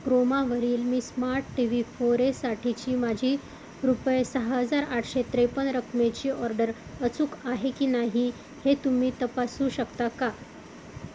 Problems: constant background noise